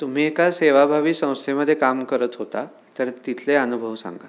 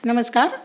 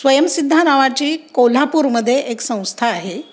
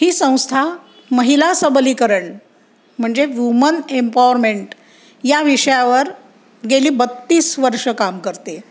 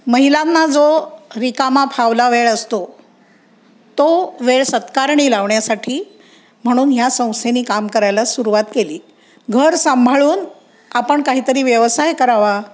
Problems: background sounds at intervals